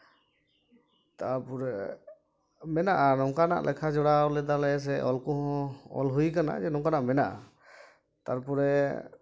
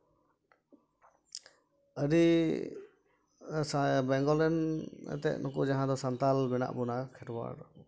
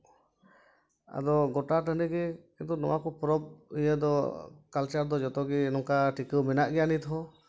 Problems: none marked